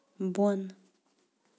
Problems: background sounds at intervals